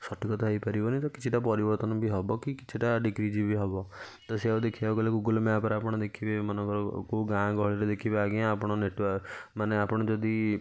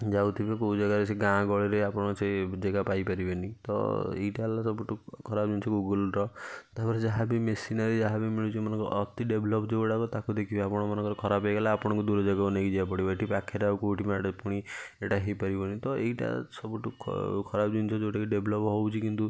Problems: none marked